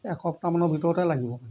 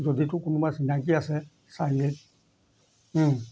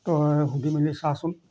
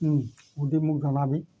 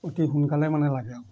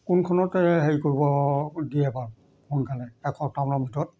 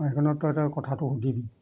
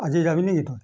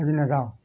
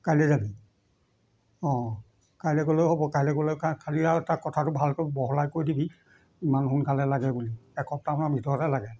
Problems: constant background noise